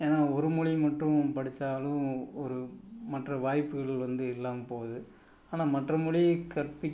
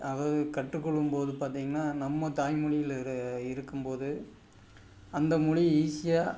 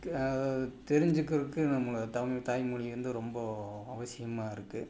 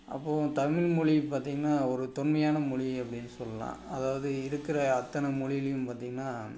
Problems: background sounds at intervals